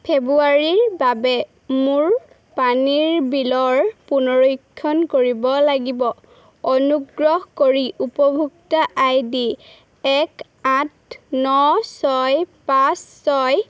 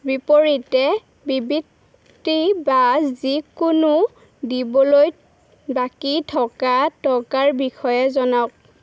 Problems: constant background noise